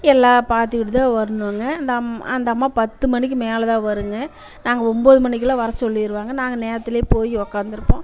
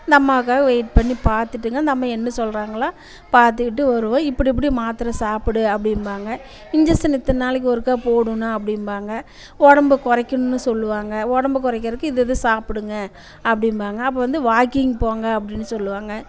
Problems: constant background noise, background conversations at intervals